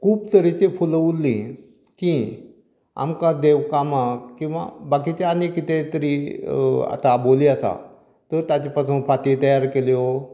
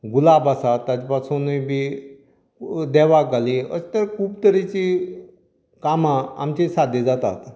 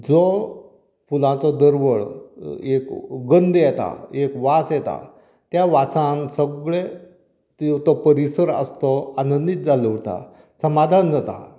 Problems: none marked